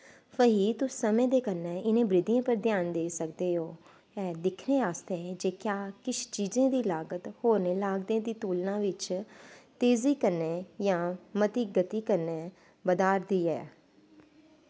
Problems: constant background noise